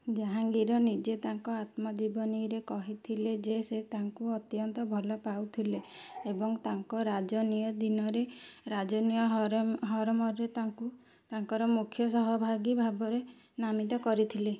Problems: none marked